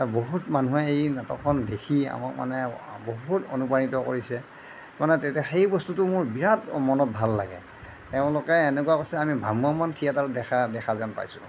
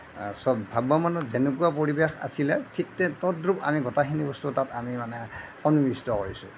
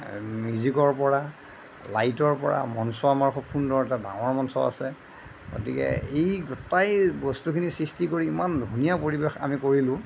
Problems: none marked